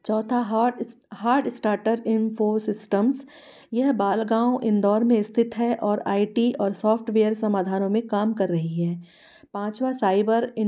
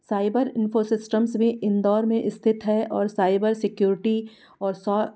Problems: none marked